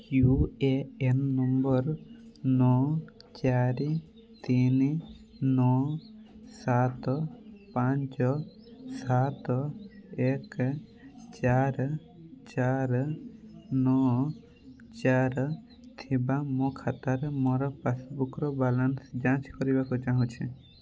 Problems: constant background noise